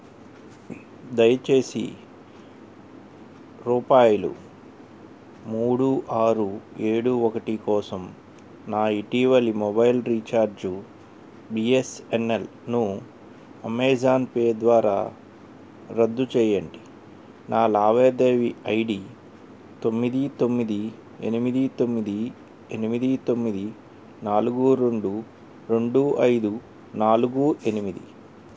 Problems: none marked